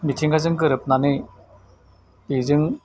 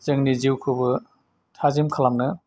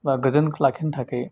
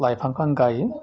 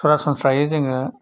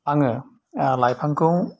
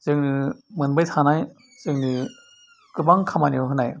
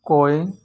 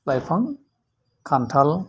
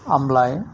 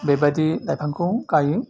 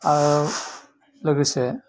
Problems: none marked